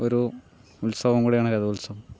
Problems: low volume